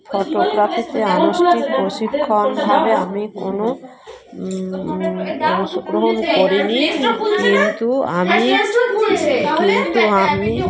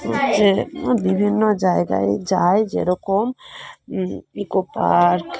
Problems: continuous background conversations